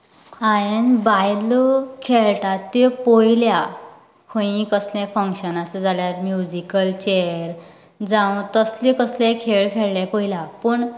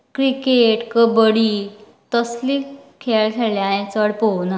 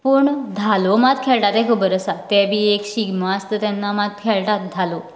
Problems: none marked